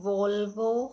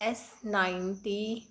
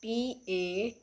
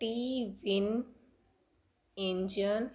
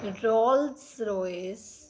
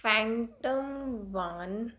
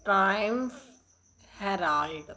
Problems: constant background noise